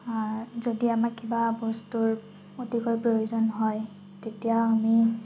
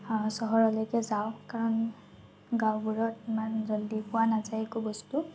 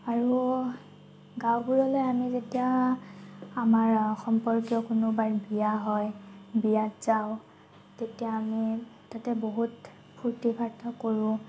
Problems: constant background noise